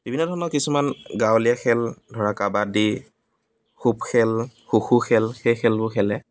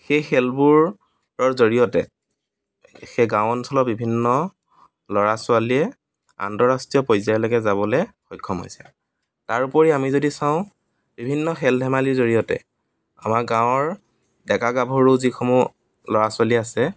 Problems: background sounds at intervals